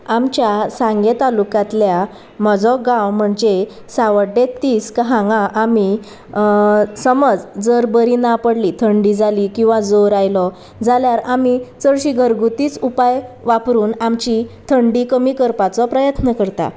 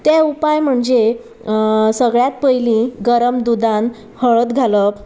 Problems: constant background noise, background conversations at intervals